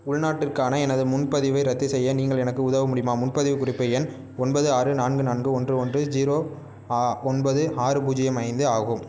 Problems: none marked